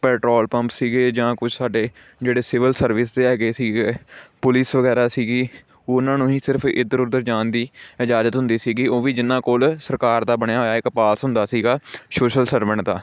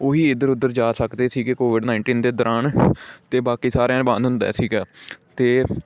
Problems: background sounds at intervals